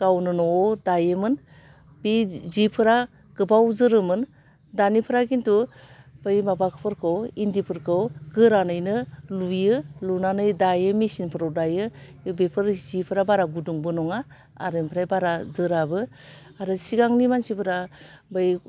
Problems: low volume